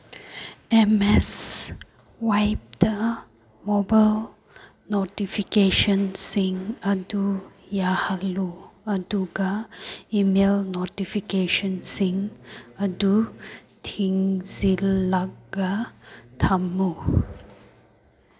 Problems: none marked